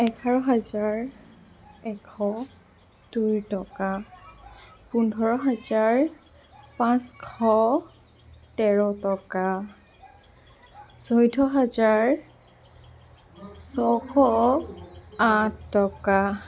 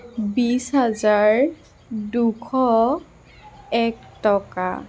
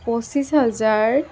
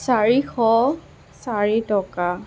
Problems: constant background noise